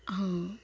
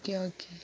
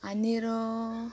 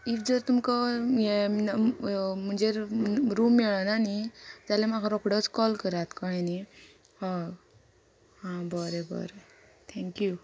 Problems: constant background noise